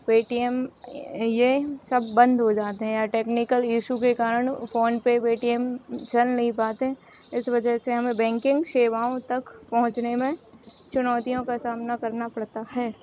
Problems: constant background noise